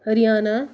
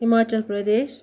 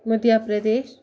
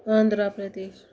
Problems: none marked